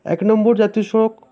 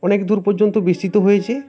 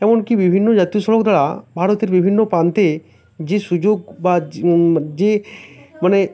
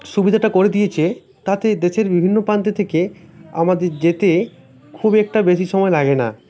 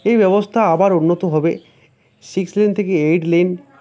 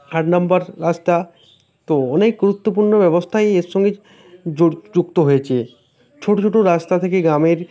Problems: constant background noise